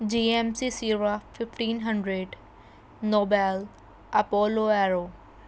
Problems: constant background noise